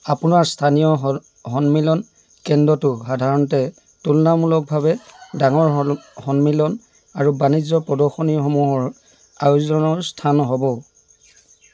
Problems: constant background noise